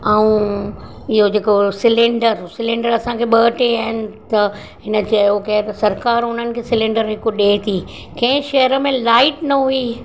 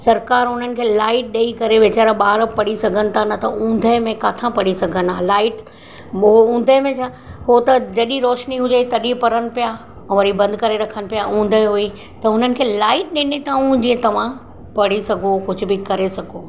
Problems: constant background noise